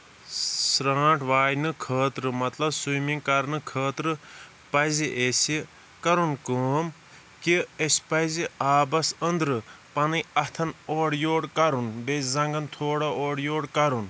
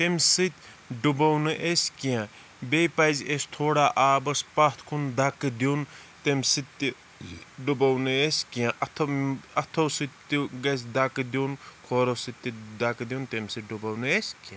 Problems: none marked